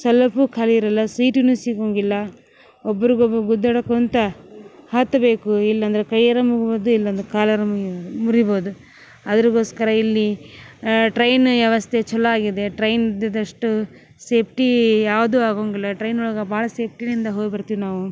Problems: background sounds at intervals